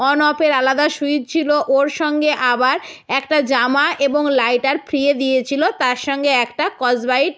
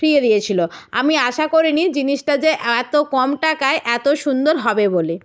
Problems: none marked